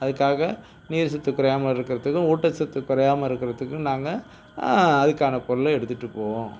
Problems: background sounds at intervals